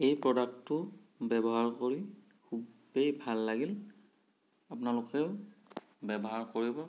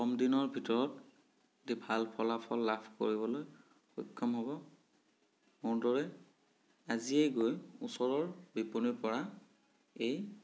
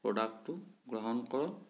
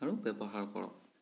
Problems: background sounds at intervals